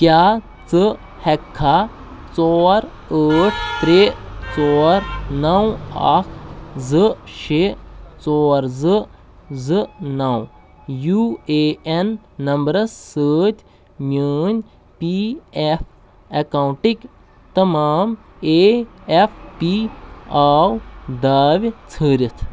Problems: constant background noise